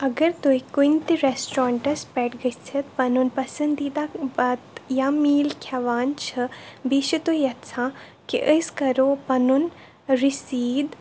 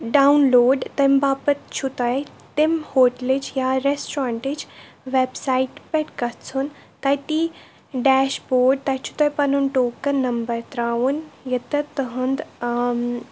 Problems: constant background noise